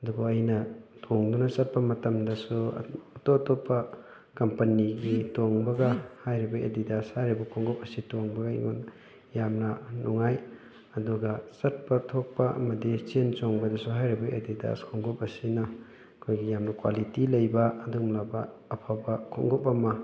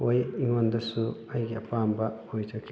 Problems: background sounds at intervals, background conversations at intervals